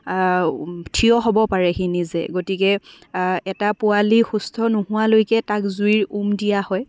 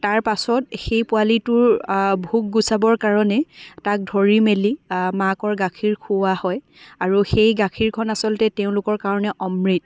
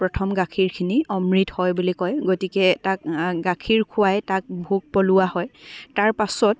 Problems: background sounds at intervals, continuous background conversations